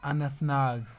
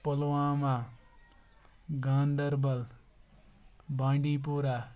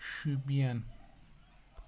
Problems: background sounds at intervals